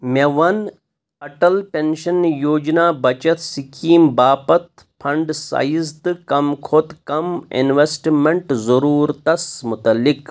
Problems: none marked